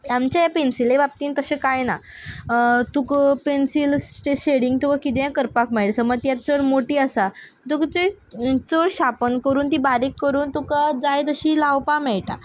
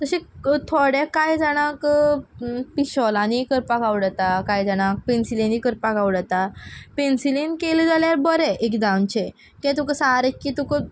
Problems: background sounds at intervals